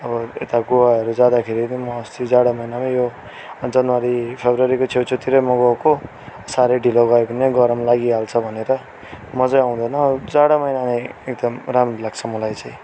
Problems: background sounds at intervals